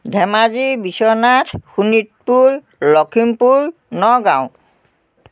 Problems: continuous background conversations